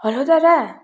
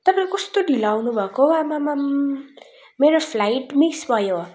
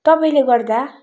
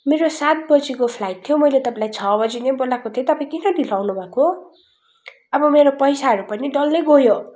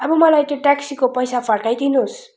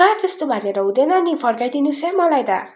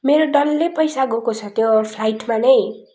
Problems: constant background noise